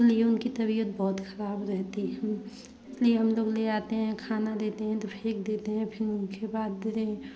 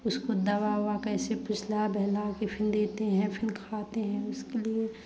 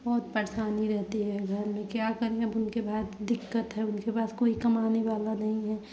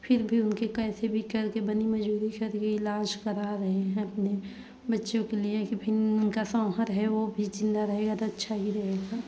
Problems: background sounds at intervals, background conversations at intervals